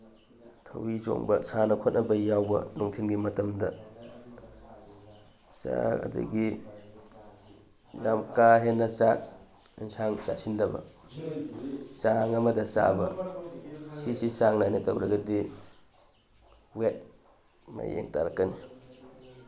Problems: none marked